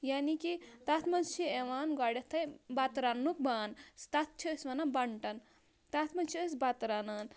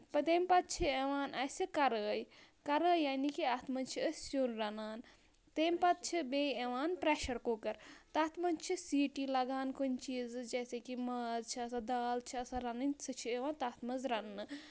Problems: none marked